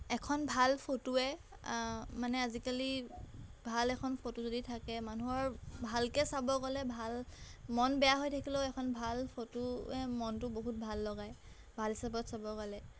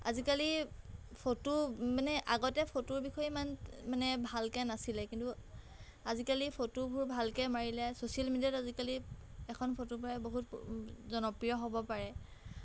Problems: background sounds at intervals